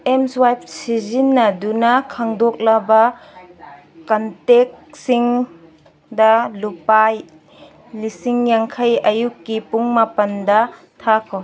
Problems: background conversations at intervals